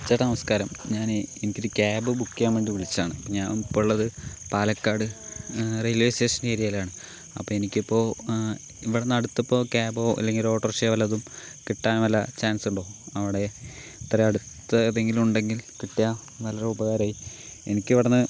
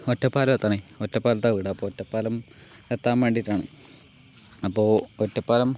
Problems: none marked